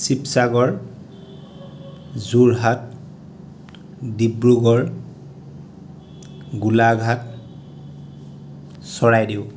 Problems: constant background noise